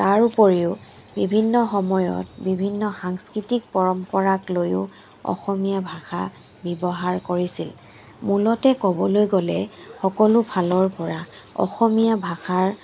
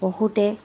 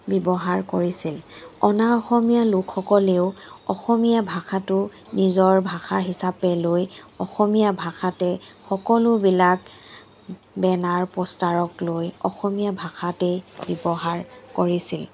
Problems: background sounds at intervals